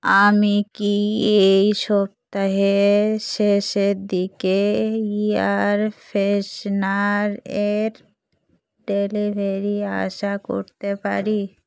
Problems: constant background noise